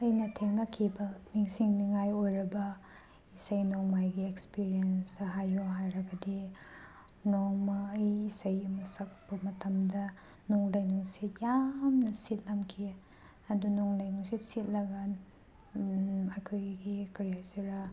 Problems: background sounds at intervals